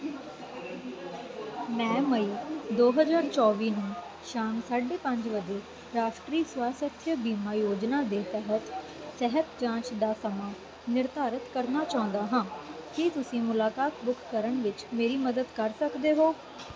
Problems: constant background noise